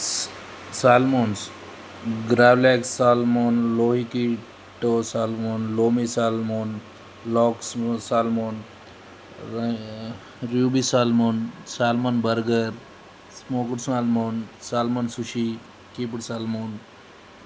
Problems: constant background noise